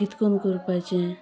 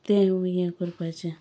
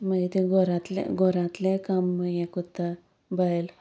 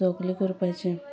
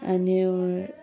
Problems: background sounds at intervals